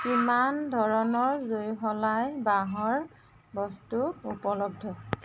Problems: constant background noise